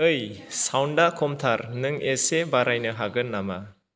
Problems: low volume